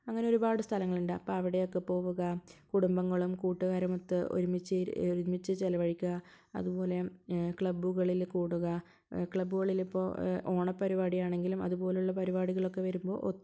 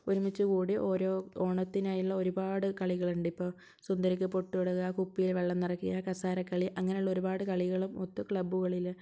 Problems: low volume